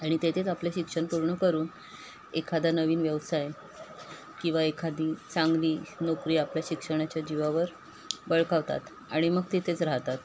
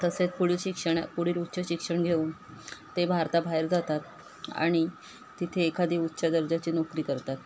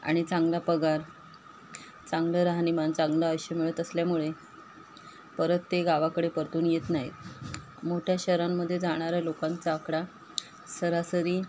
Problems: constant background noise